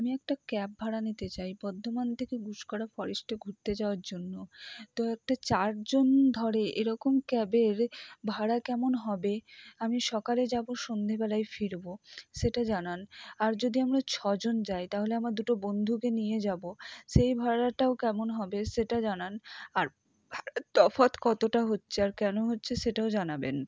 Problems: low volume